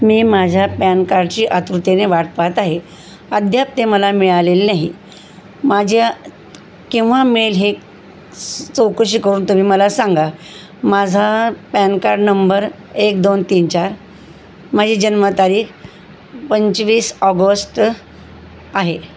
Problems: constant background noise